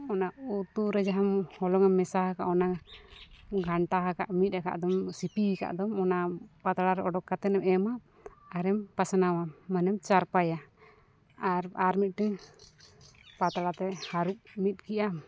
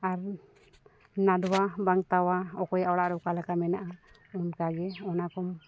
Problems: background sounds at intervals